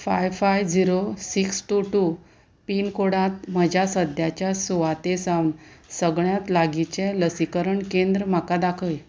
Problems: none marked